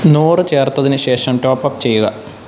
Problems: constant background noise